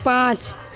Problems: constant background noise